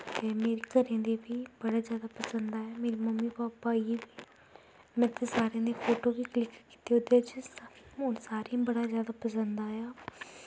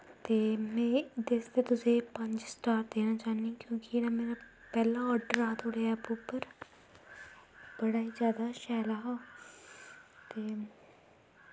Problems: constant background noise, low volume